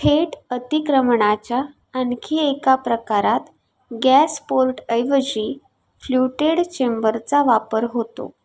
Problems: none marked